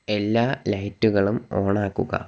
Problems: none marked